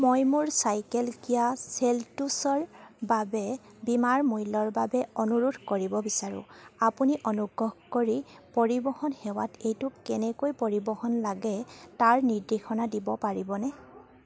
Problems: none marked